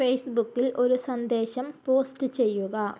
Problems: low volume